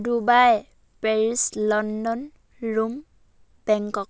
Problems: none marked